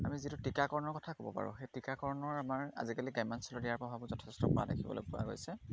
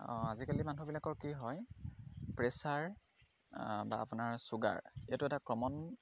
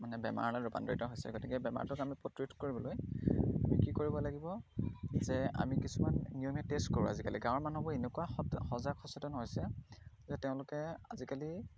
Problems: none marked